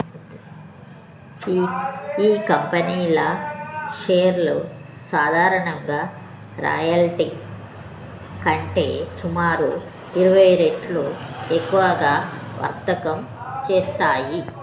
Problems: constant background noise